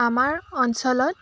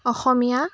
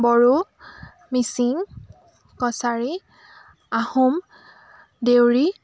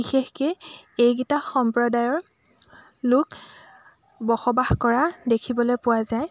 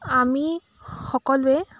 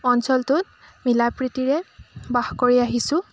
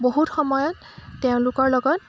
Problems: constant background noise